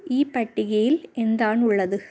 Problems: none marked